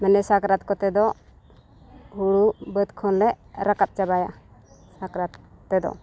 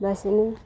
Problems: none marked